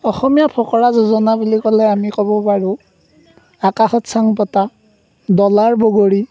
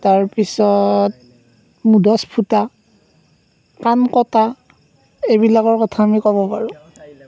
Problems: none marked